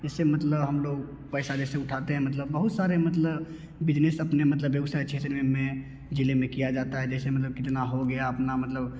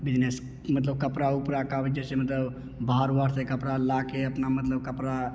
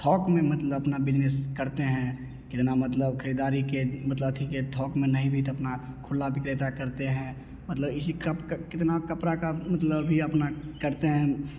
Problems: none marked